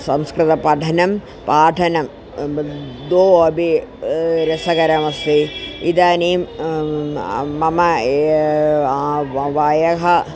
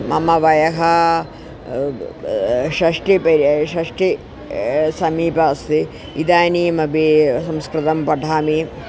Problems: constant background noise